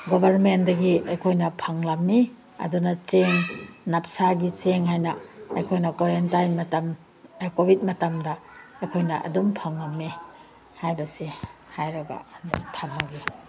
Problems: background conversations at intervals